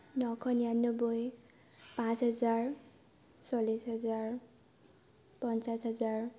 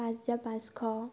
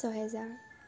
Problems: background sounds at intervals